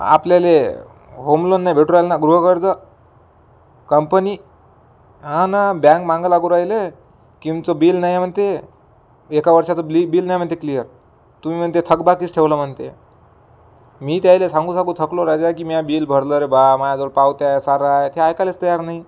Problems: none marked